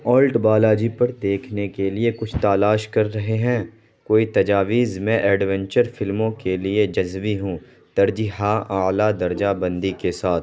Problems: constant background noise